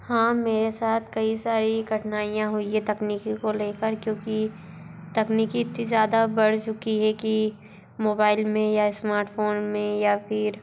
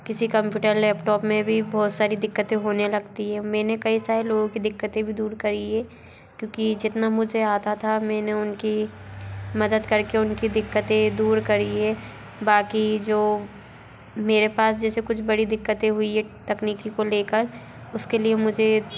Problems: constant background noise, continuous background conversations